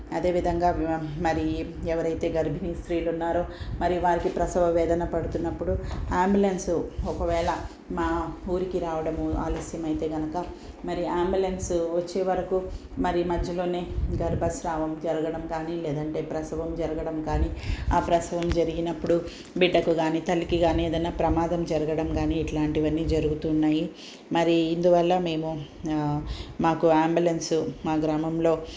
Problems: none marked